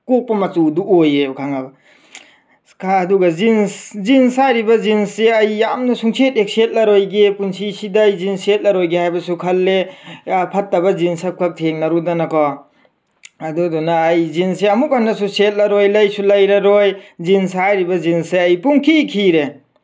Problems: none marked